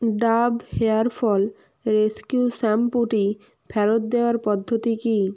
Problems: none marked